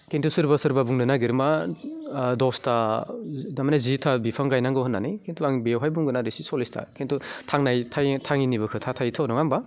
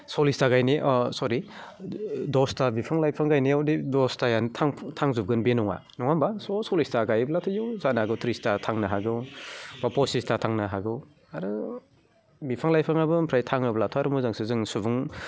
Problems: constant background noise